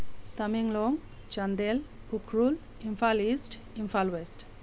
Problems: constant background noise